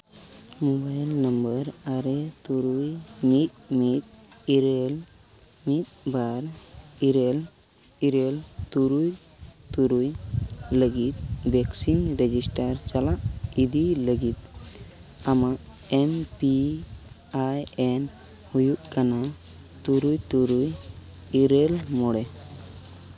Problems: constant background noise